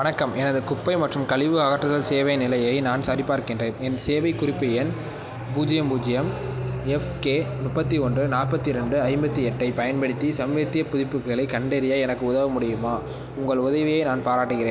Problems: background sounds at intervals